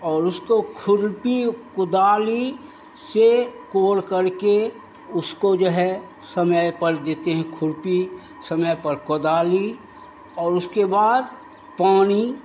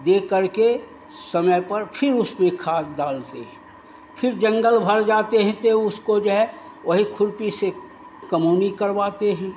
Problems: constant background noise